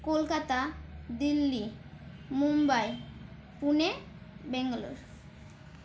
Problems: constant background noise